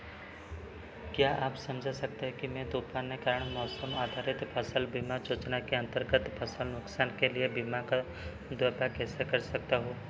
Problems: none marked